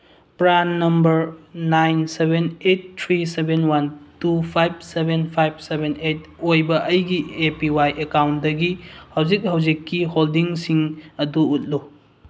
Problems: background sounds at intervals